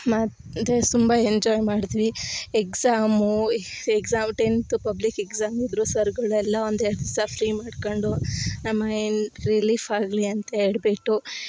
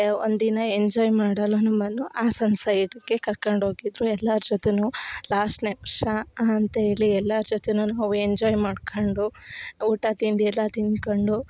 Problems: none marked